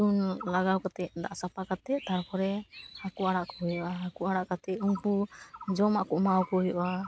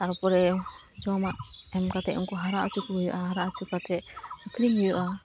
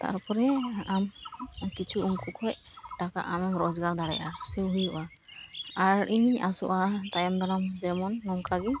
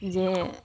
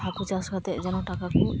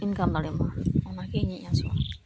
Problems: constant background noise